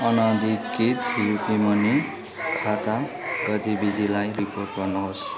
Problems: continuous background conversations